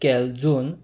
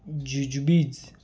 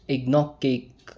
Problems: background sounds at intervals